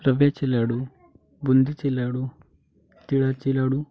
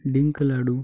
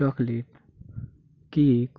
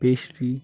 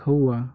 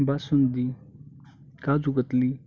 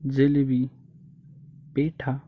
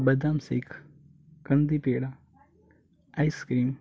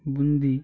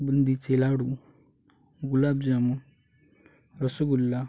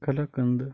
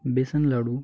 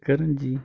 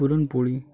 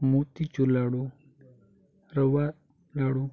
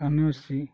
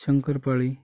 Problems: constant background noise